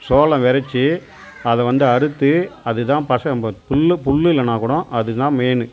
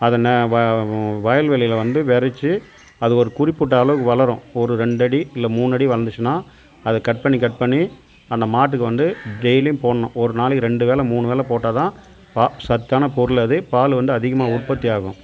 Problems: constant background noise